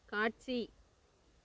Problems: background conversations at intervals